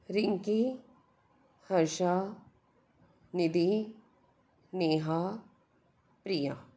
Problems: none marked